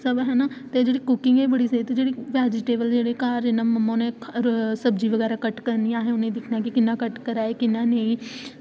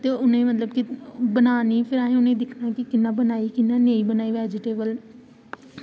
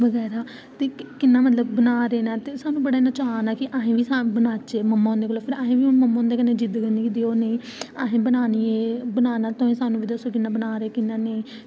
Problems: constant background noise